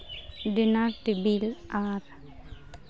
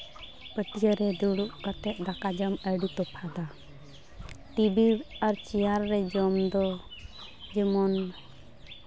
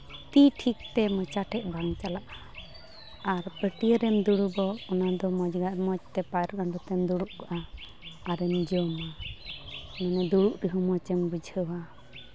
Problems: constant background noise